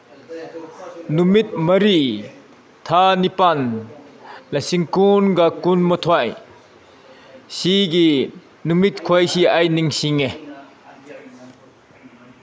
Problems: background sounds at intervals, background conversations at intervals